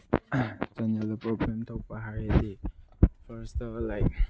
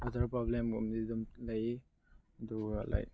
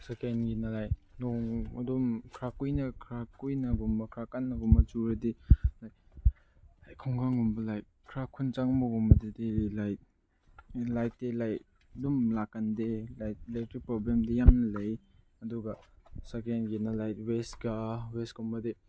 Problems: low volume